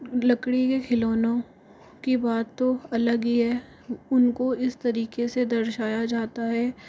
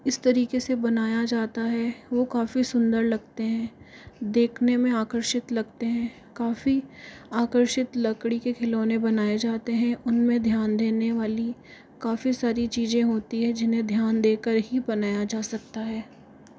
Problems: constant background noise